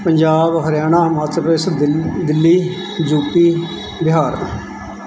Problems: constant background noise